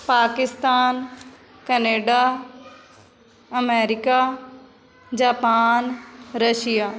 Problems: continuous background conversations